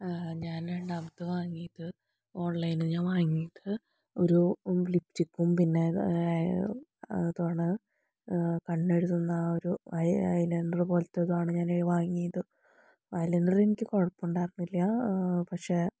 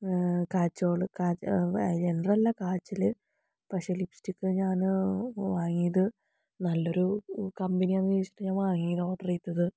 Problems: low volume